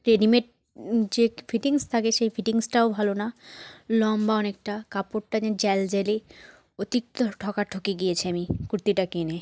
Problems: none marked